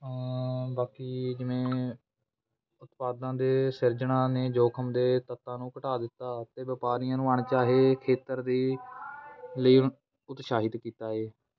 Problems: background sounds at intervals, continuous background conversations